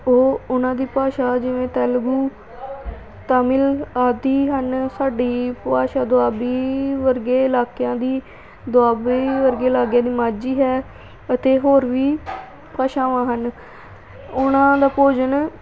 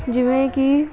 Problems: background sounds at intervals